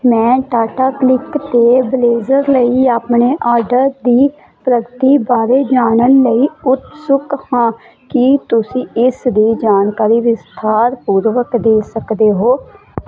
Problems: constant background noise